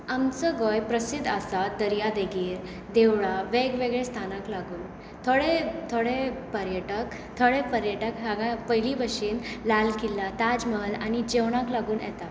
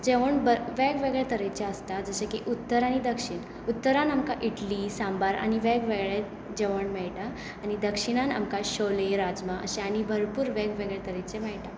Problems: constant background noise